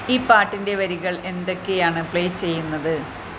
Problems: constant background noise